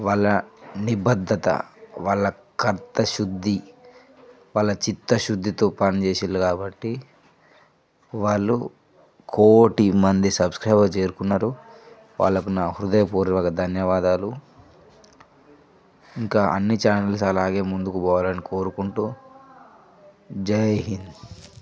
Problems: none marked